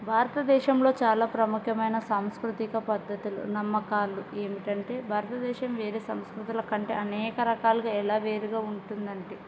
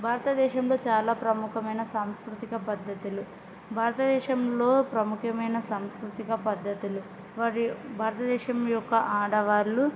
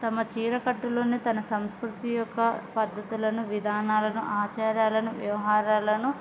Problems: background sounds at intervals